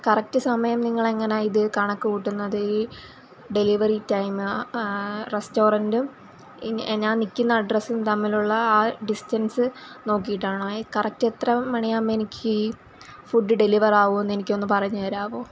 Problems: constant background noise